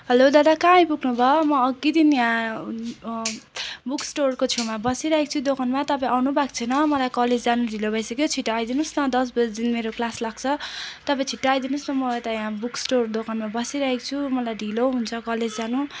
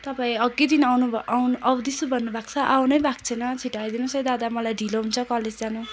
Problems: constant background noise, continuous background conversations